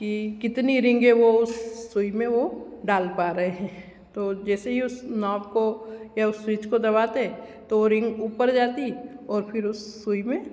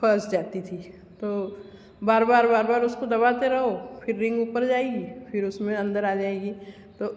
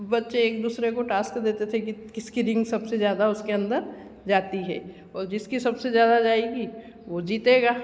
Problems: constant background noise